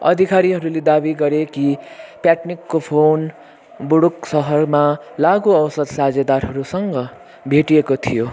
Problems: none marked